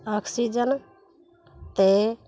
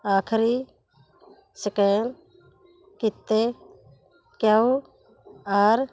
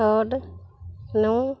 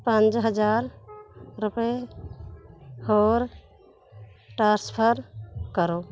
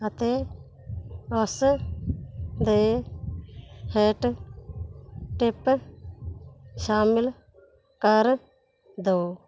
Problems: none marked